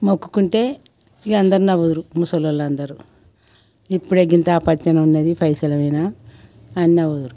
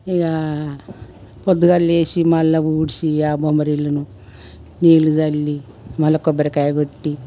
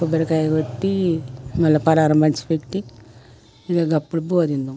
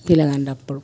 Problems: background sounds at intervals